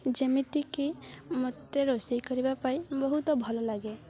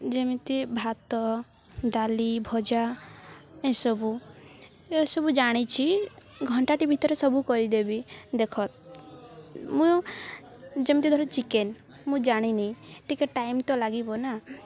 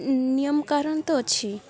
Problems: none marked